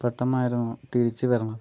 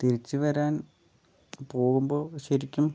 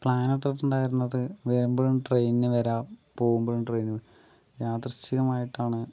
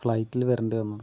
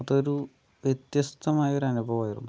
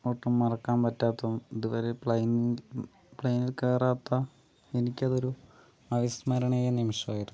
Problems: none marked